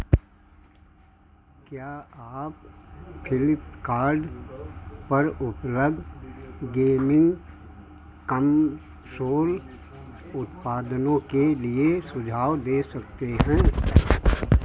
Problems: none marked